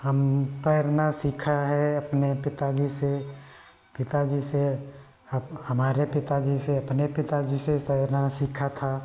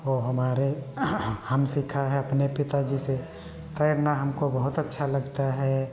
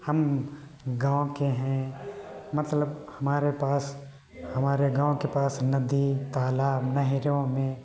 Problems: none marked